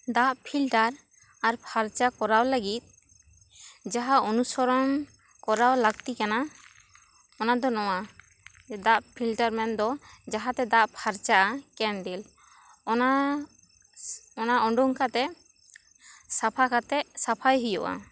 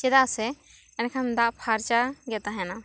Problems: none marked